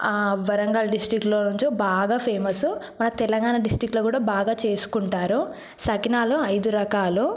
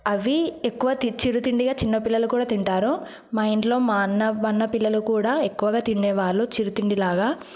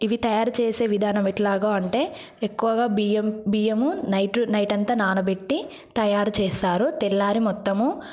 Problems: none marked